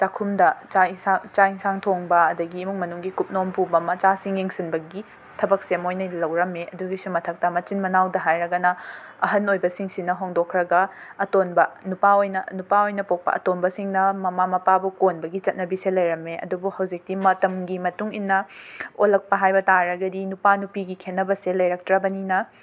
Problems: background sounds at intervals